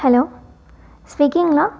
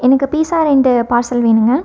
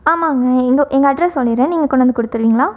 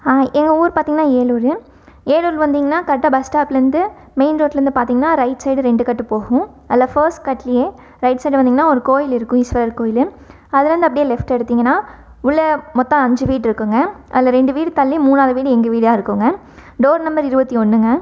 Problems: none marked